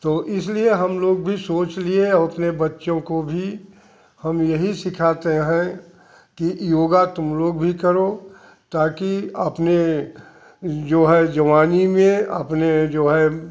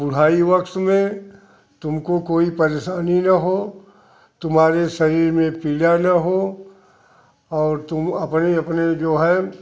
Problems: constant background noise